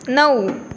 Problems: constant background noise